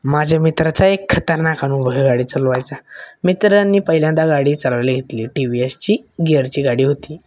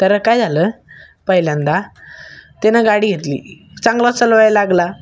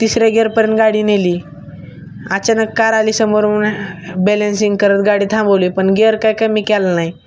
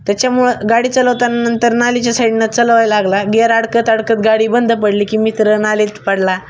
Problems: none marked